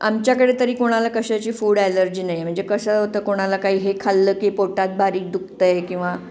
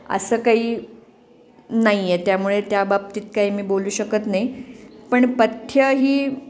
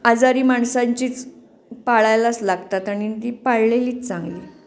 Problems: constant background noise